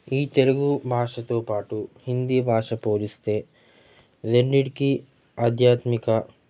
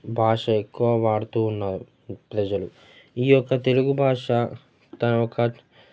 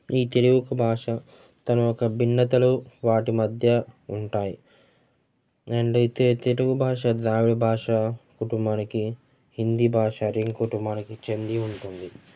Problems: constant background noise, continuous background conversations